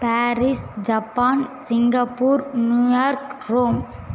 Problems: constant background noise